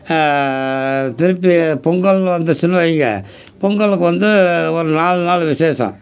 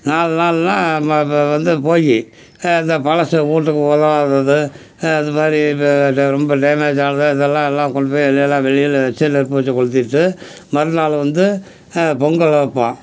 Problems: none marked